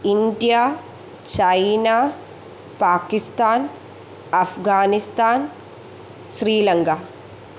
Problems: low volume